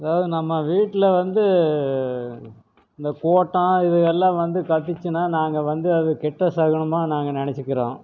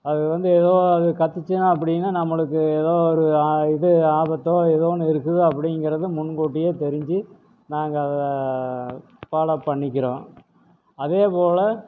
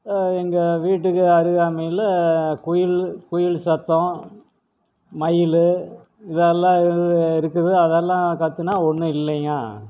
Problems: none marked